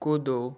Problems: none marked